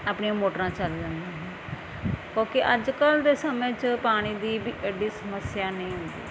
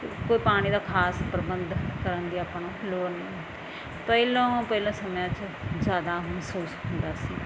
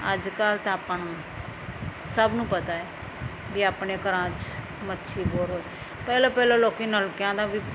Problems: none marked